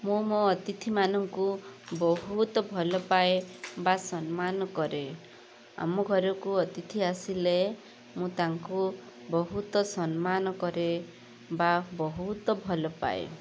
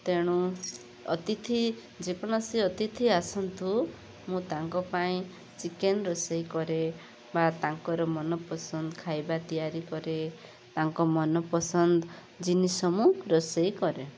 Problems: constant background noise